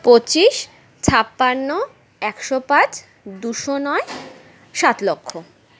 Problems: background sounds at intervals